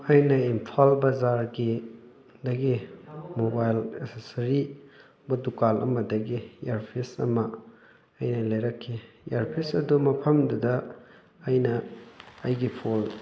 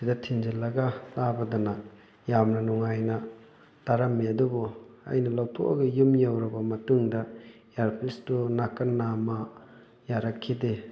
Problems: background sounds at intervals, continuous background conversations